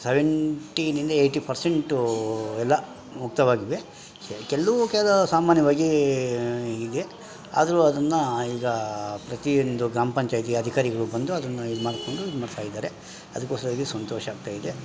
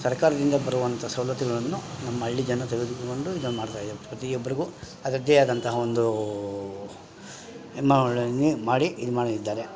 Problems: none marked